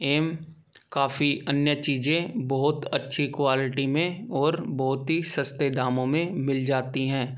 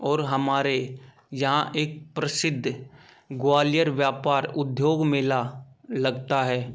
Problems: background sounds at intervals